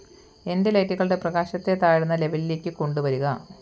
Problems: constant background noise